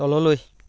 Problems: none marked